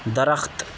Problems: constant background noise